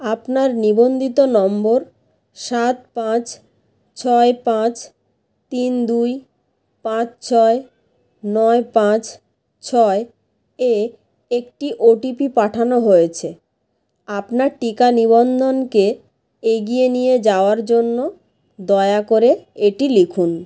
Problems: none marked